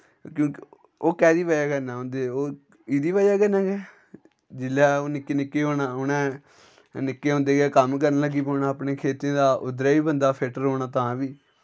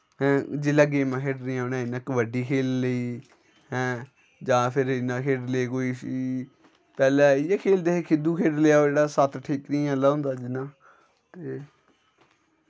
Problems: none marked